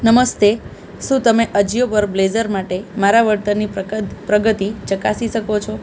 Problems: constant background noise